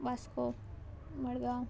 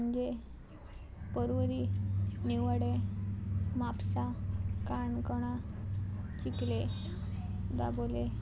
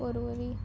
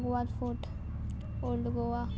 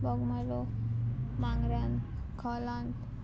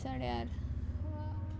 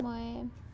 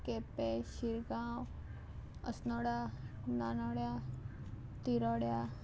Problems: constant background noise, background conversations at intervals